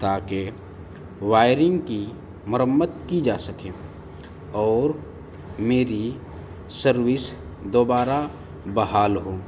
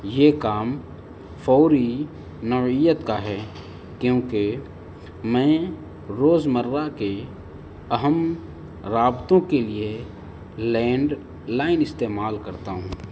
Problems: constant background noise